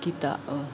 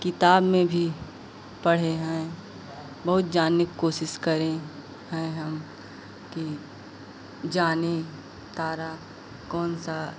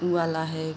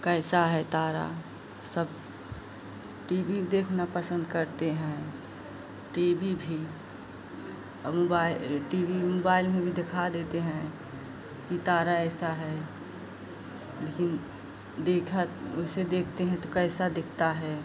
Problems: constant background noise